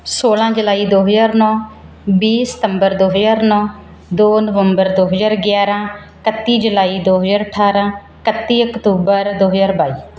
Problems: background sounds at intervals